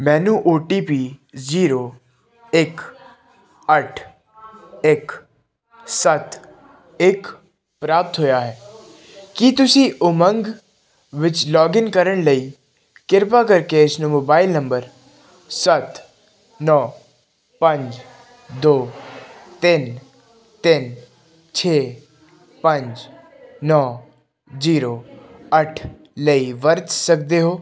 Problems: continuous background conversations